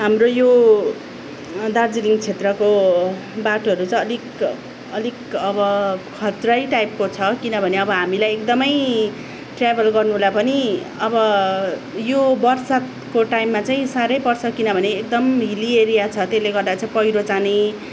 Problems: none marked